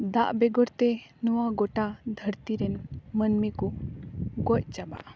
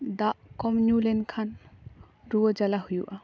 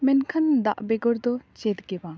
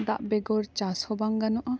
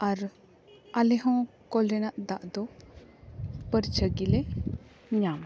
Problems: none marked